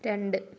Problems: none marked